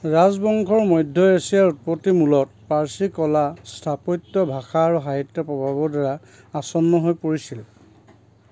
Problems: background sounds at intervals